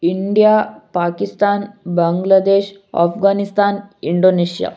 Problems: none marked